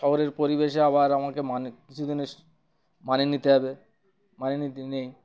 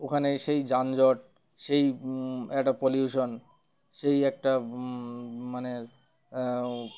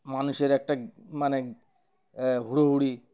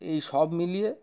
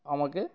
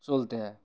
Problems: none marked